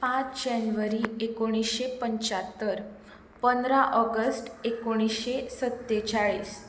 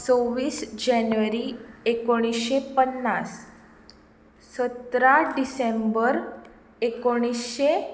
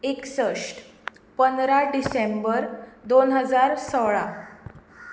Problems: background sounds at intervals